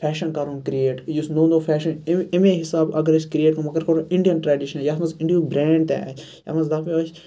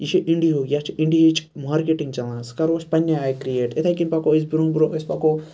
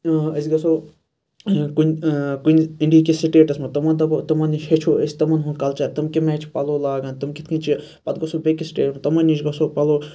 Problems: none marked